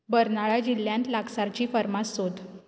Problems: background sounds at intervals